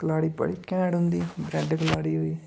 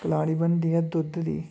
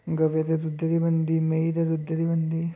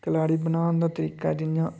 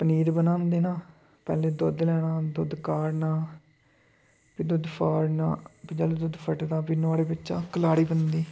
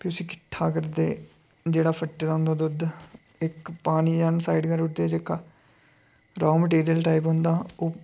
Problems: none marked